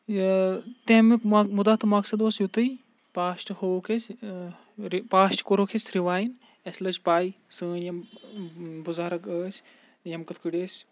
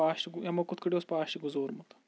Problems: background sounds at intervals